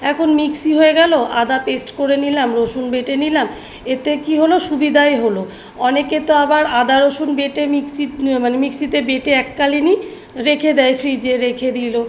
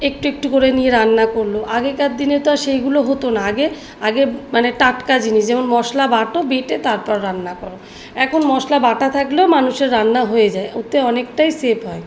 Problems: background sounds at intervals